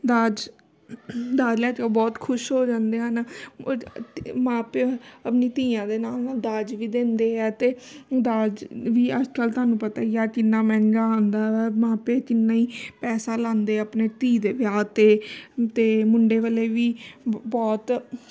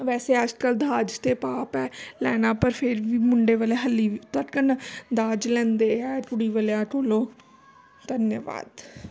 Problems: constant background noise